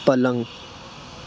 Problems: constant background noise